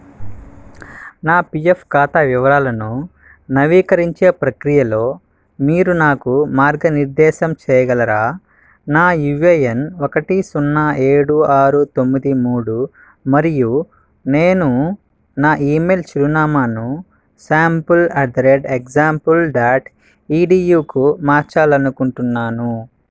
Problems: none marked